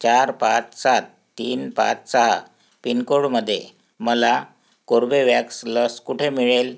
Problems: none marked